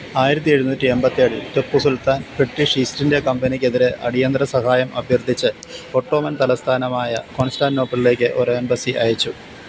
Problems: constant background noise